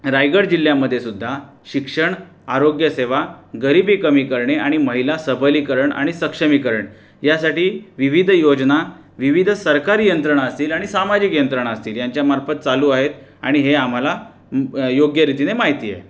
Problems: constant background noise